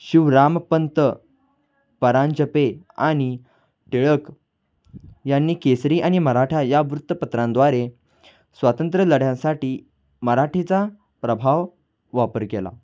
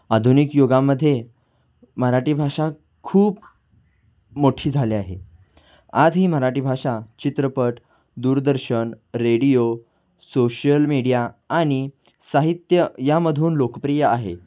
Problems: constant background noise, background conversations at intervals